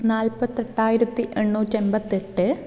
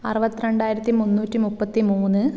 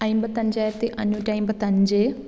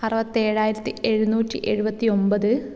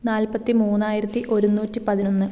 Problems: background sounds at intervals